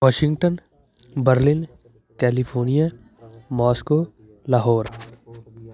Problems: continuous background conversations